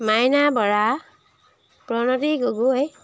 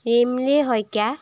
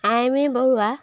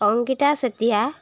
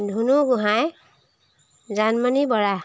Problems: background sounds at intervals